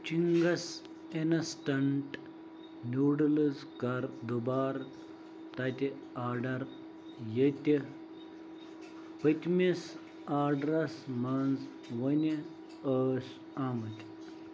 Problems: none marked